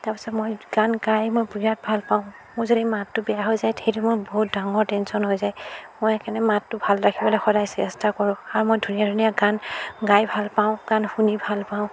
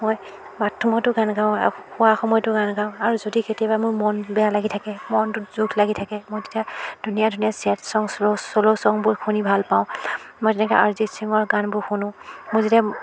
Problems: constant background noise